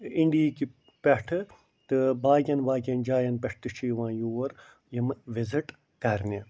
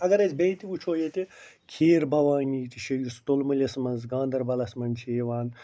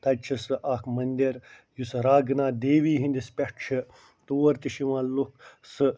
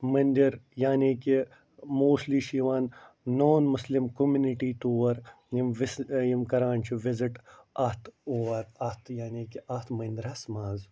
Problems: none marked